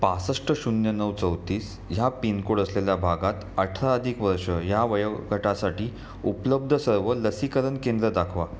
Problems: constant background noise